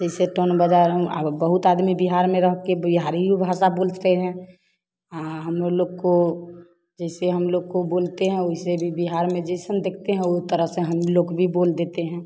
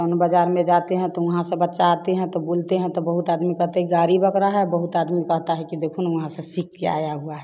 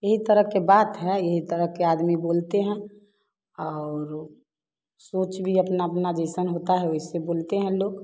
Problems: none marked